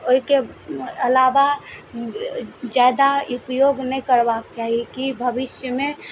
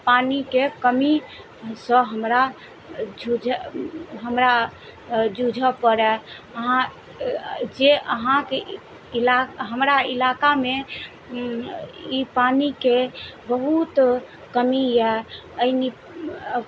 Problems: none marked